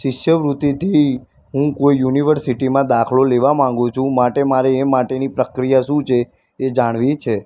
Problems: constant background noise